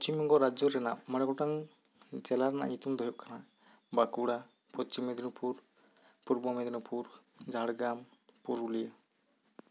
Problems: none marked